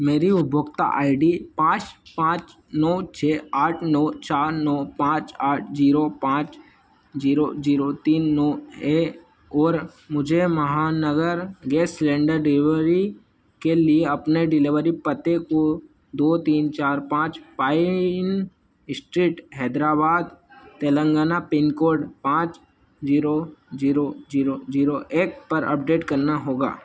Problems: constant background noise